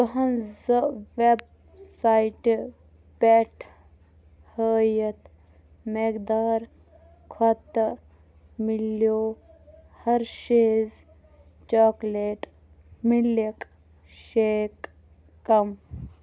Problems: background conversations at intervals